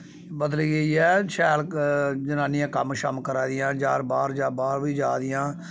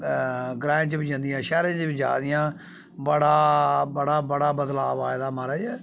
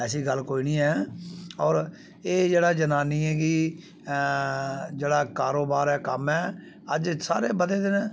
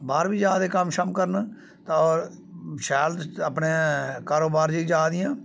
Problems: background sounds at intervals